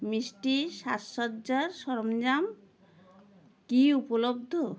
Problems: constant background noise